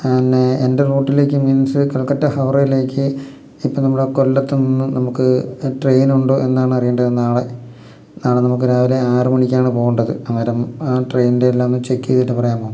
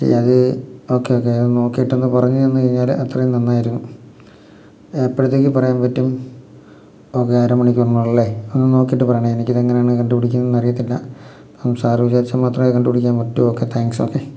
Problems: none marked